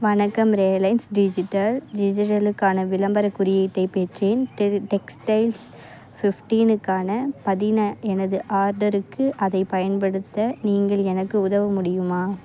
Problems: constant background noise